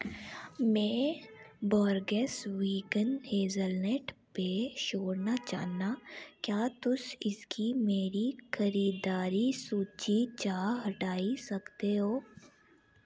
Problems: none marked